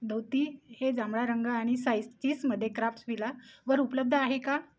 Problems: none marked